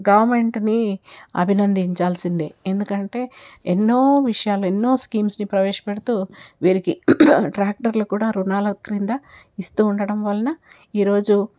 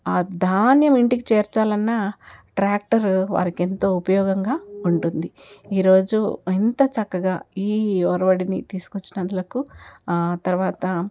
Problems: none marked